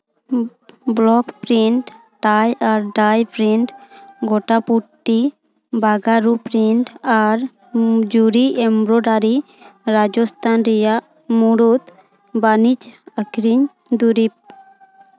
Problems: continuous background conversations